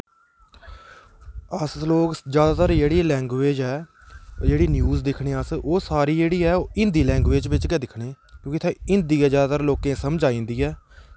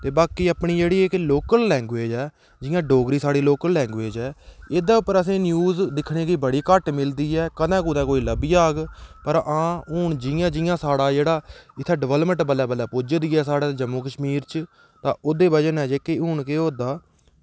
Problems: constant background noise